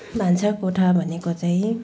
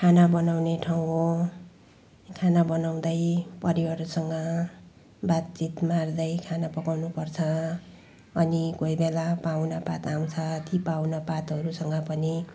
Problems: background sounds at intervals